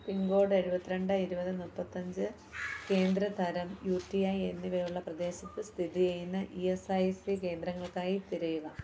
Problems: background sounds at intervals